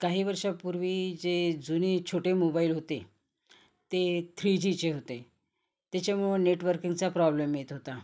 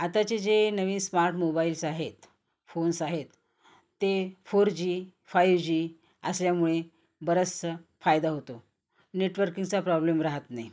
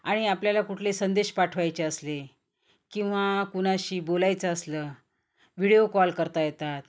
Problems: none marked